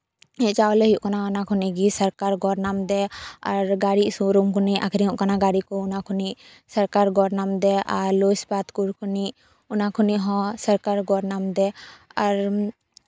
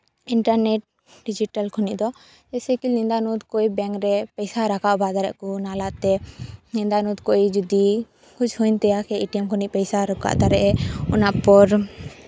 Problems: background sounds at intervals